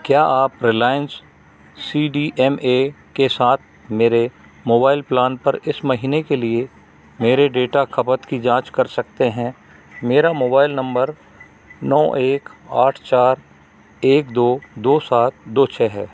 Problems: none marked